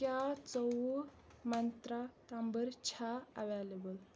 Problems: none marked